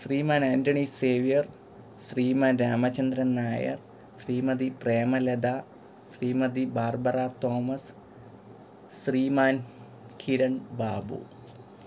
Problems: background sounds at intervals